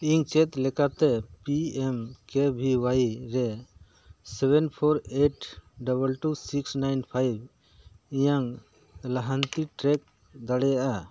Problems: background sounds at intervals